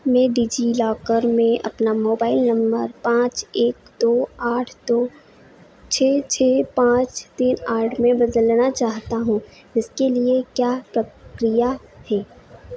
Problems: none marked